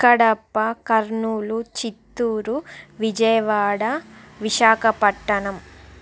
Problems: none marked